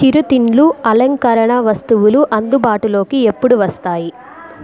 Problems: continuous background conversations